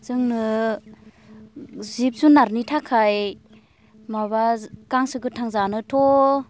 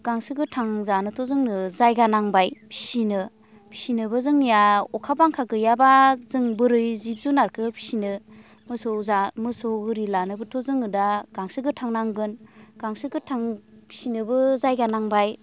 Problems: constant background noise